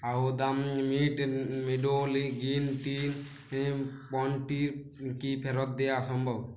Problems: constant background noise